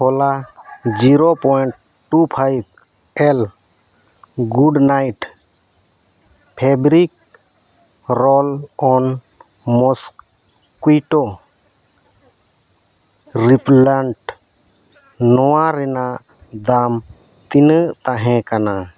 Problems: none marked